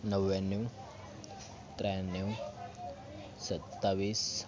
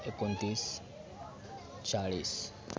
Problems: background sounds at intervals, continuous background conversations